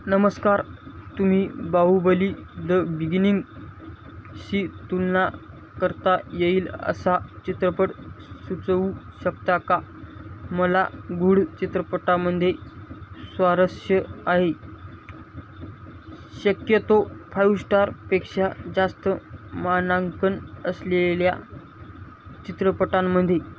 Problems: constant background noise